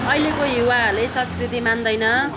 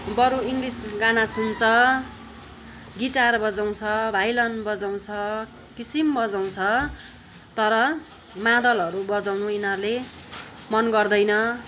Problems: constant background noise, continuous background conversations